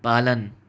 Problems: none marked